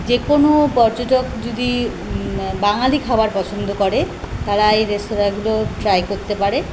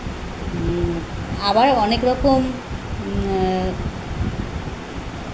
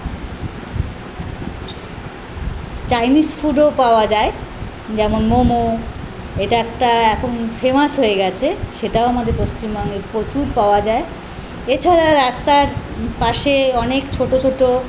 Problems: none marked